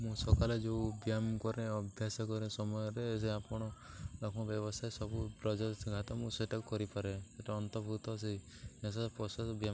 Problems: none marked